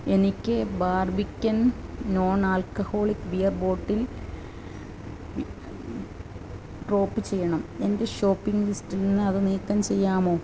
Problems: constant background noise